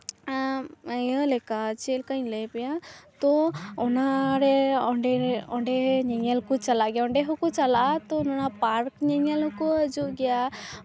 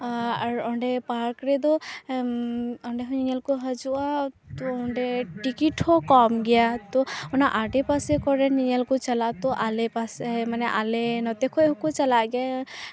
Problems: constant background noise, continuous background conversations